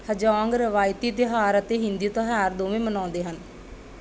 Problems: background sounds at intervals